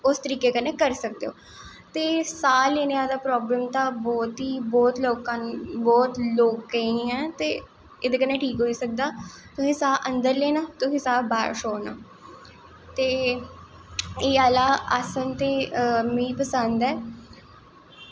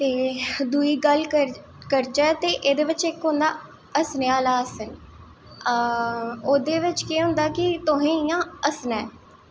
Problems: echo